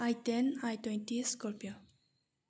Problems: low volume